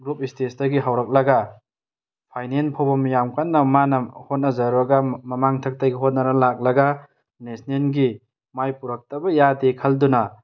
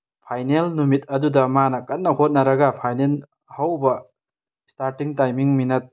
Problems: none marked